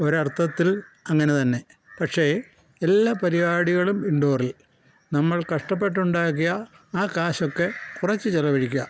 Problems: background sounds at intervals